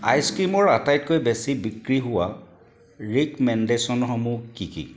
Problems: constant background noise